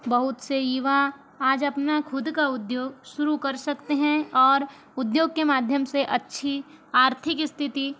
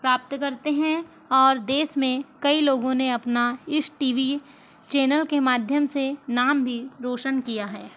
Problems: constant background noise